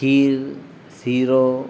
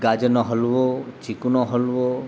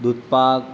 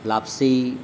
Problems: constant background noise